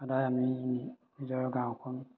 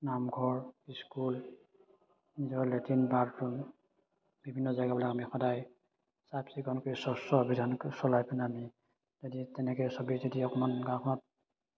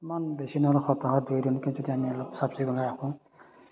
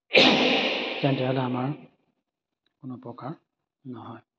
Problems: none marked